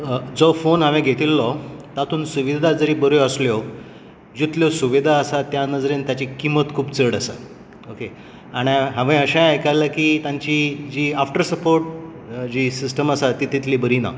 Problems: constant background noise